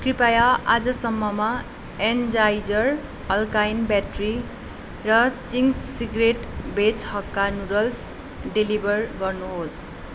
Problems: constant background noise